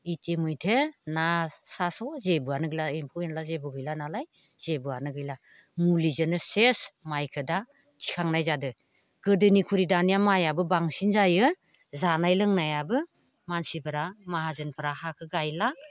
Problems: none marked